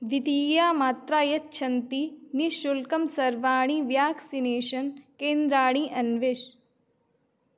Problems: none marked